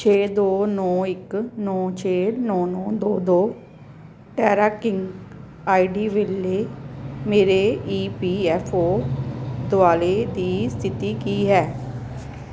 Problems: background sounds at intervals